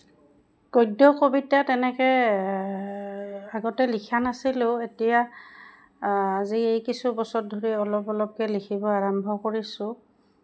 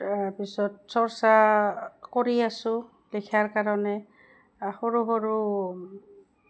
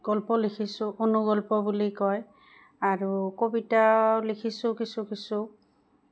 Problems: background sounds at intervals